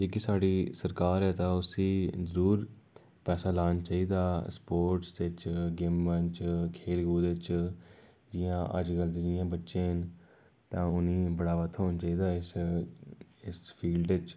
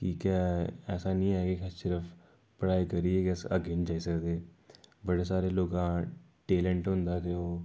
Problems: none marked